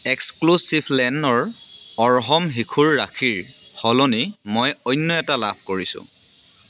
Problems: constant background noise, background conversations at intervals